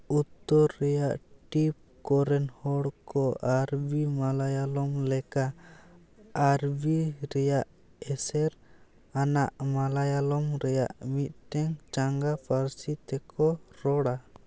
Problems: none marked